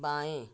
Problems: none marked